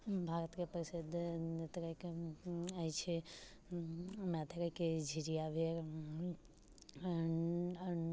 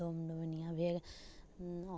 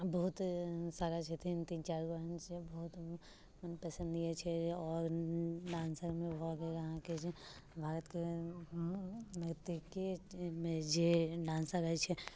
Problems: low volume